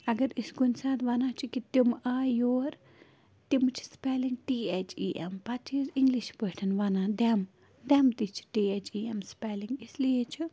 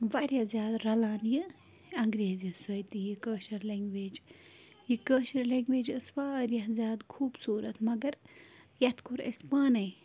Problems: constant background noise